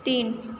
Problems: none marked